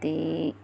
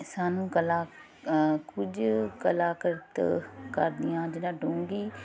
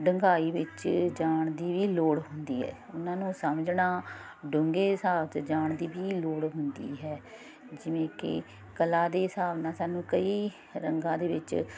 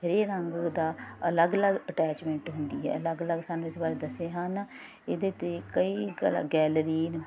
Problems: none marked